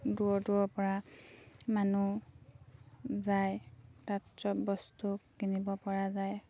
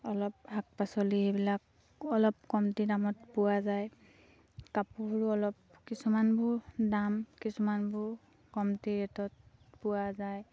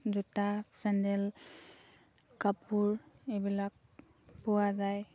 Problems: none marked